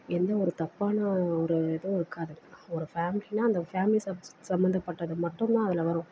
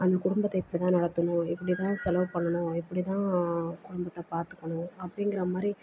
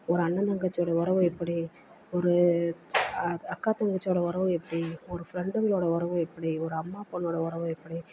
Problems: constant background noise, low volume